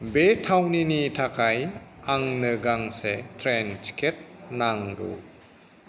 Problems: none marked